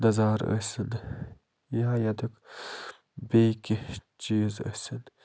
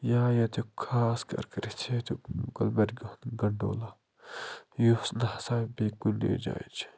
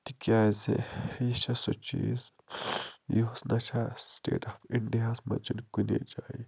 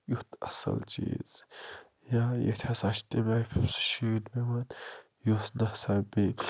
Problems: low volume